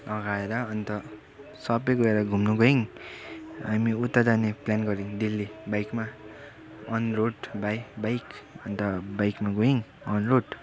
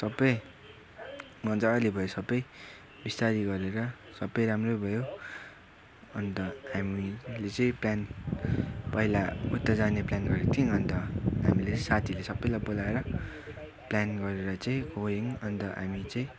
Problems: constant background noise, continuous background conversations